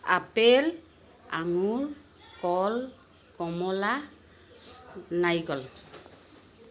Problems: constant background noise